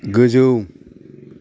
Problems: constant background noise